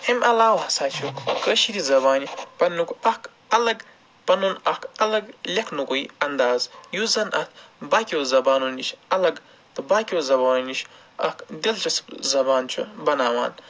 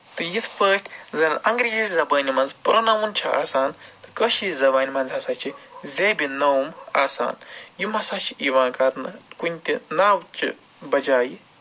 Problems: background sounds at intervals